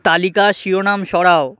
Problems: constant background noise